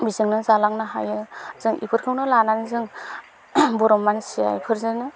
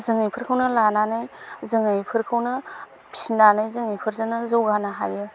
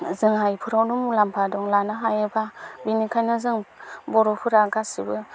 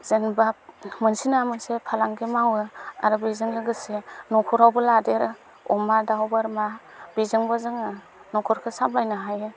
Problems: none marked